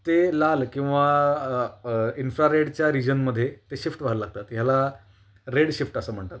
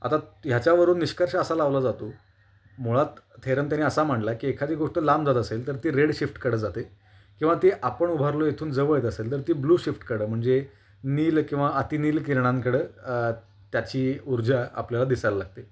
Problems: constant background noise, background conversations at intervals